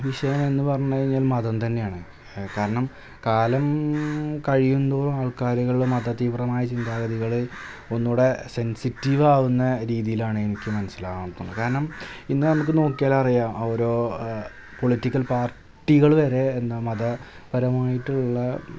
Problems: constant background noise